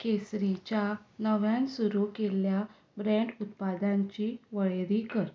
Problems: background sounds at intervals